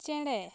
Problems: background sounds at intervals